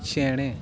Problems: constant background noise